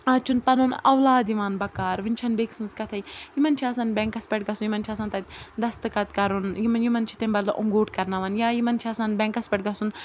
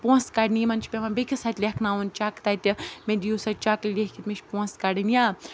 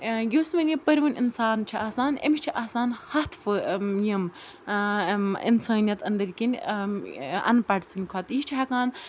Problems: constant background noise